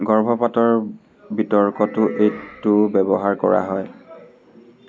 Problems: none marked